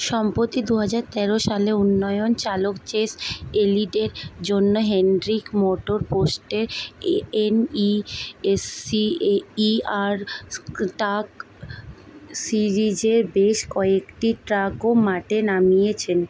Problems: background sounds at intervals